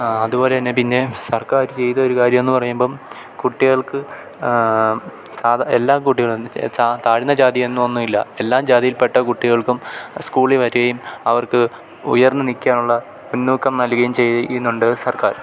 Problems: none marked